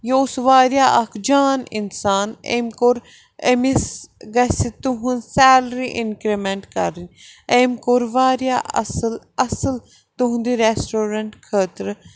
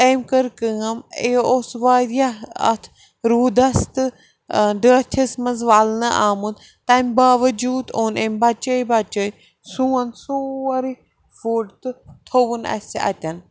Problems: none marked